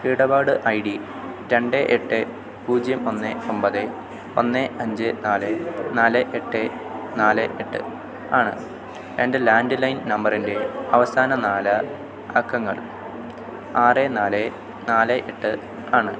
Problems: constant background noise